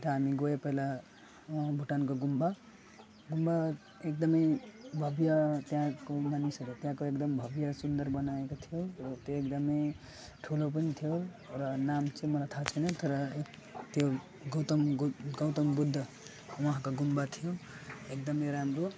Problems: constant background noise, background conversations at intervals, low volume